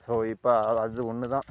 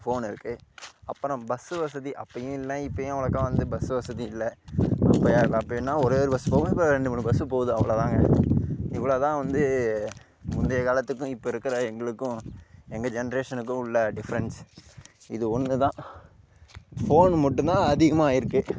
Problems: constant background noise